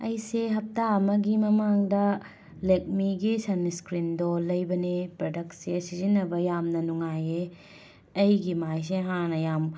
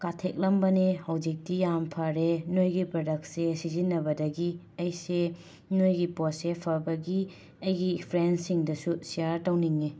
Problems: none marked